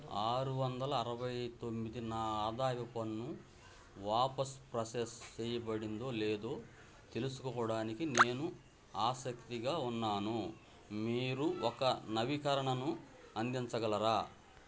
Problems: none marked